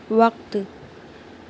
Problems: constant background noise